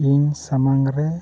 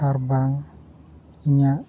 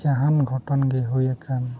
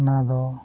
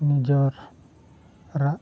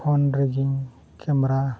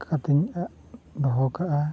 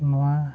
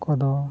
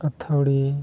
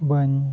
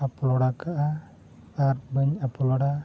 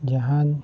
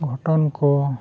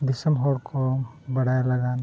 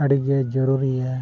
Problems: none marked